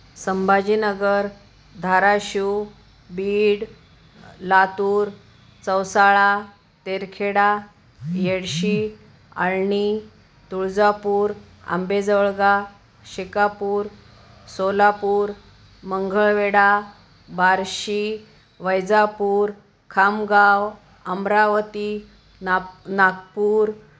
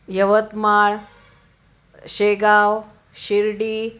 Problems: constant background noise, background conversations at intervals